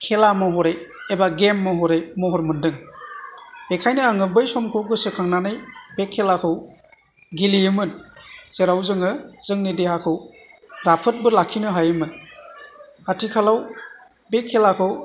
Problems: continuous background conversations